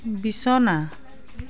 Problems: constant background noise, background conversations at intervals